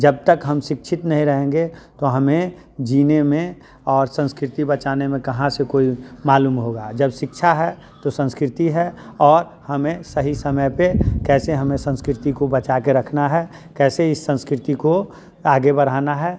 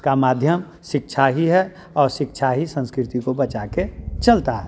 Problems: constant background noise, continuous background conversations